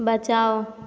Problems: none marked